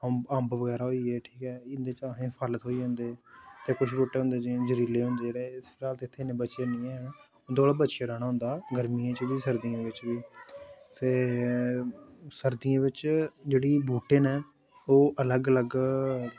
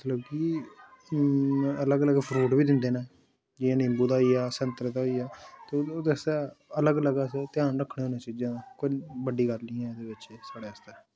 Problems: constant background noise